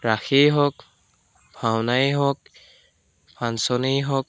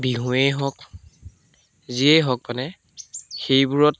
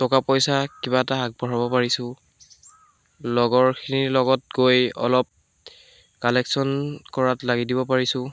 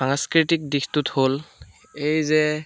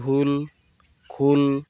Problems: none marked